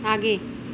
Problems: none marked